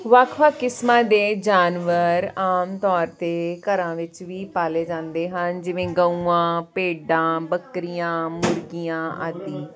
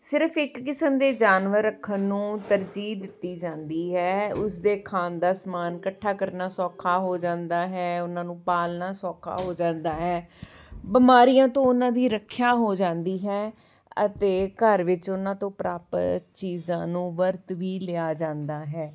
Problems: background sounds at intervals